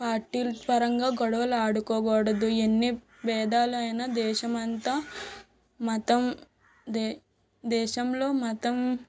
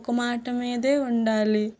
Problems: background sounds at intervals